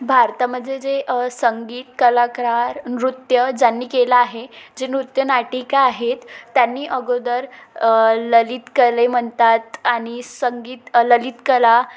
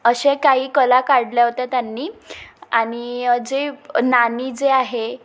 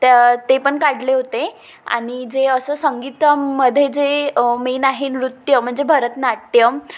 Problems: none marked